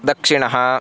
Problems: constant background noise, continuous background conversations